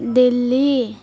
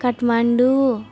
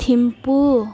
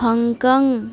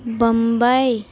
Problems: constant background noise